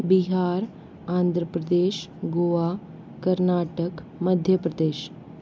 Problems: constant background noise